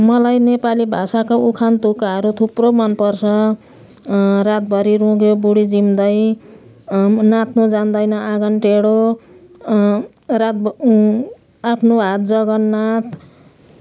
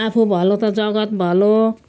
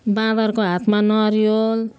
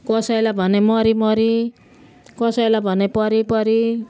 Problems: constant background noise, continuous background conversations